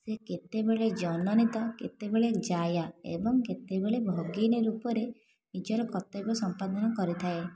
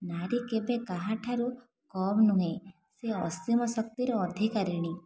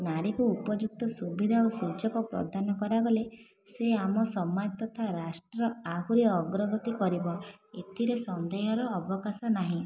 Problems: constant background noise